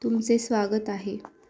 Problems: none marked